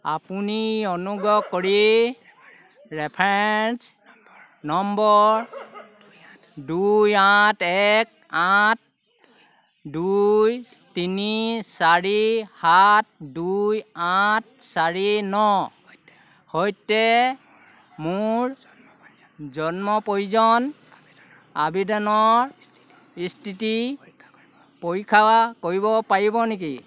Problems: none marked